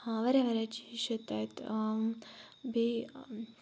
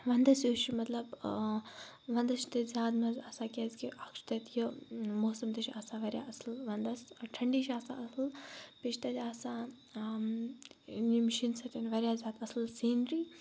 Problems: none marked